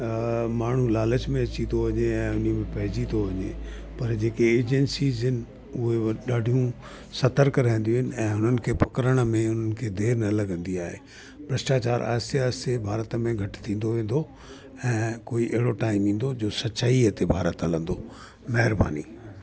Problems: constant background noise